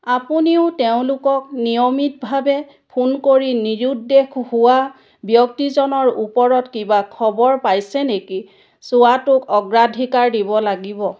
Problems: none marked